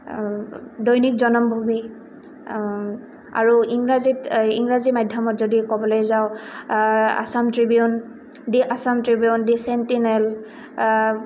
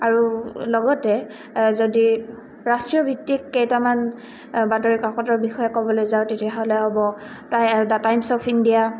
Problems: none marked